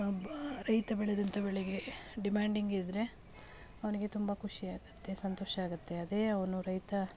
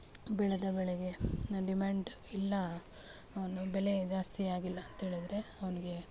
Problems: background sounds at intervals, low volume